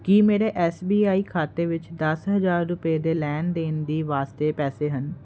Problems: none marked